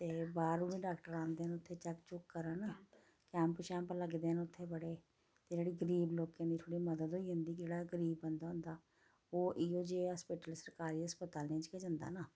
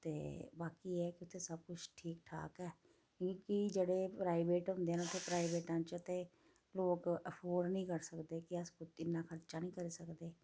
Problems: low volume